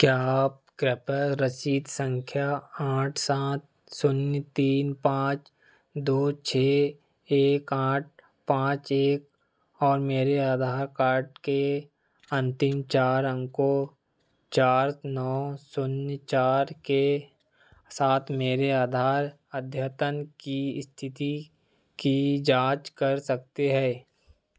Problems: none marked